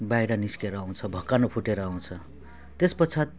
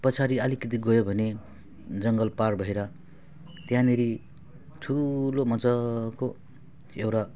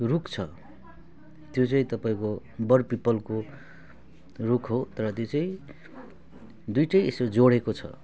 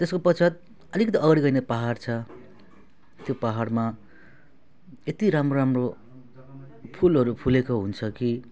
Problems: none marked